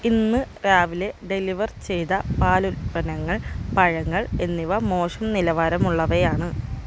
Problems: constant background noise